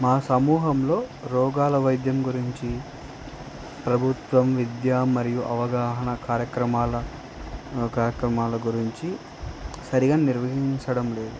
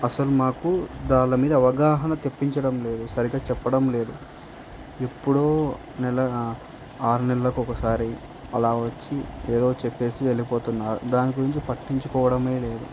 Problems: constant background noise